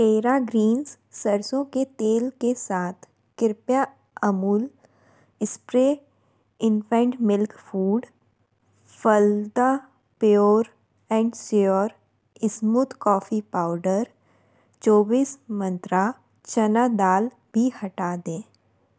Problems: none marked